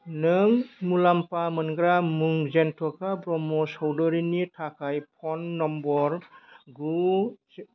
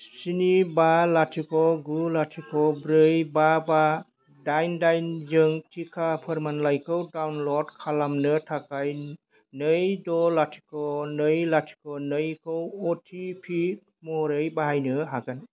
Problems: none marked